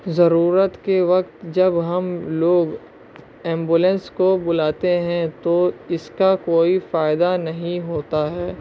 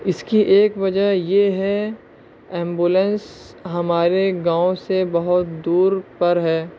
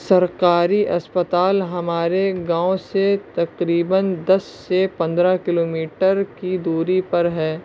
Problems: constant background noise